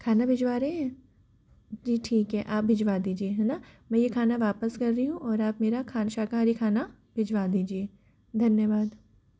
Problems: background sounds at intervals